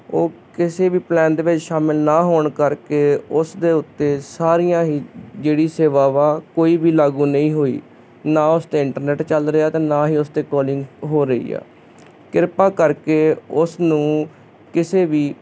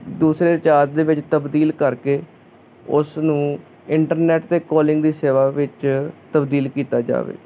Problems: none marked